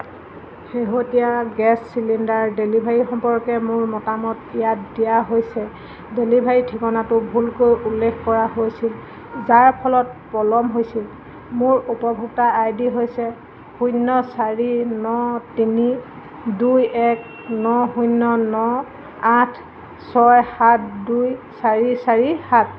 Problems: constant background noise